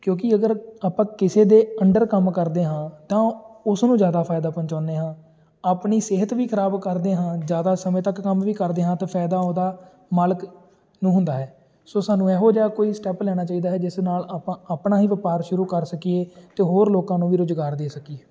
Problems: constant background noise, continuous background conversations